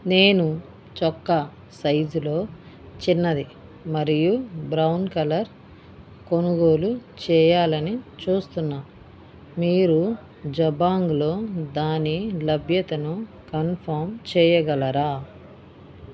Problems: background conversations at intervals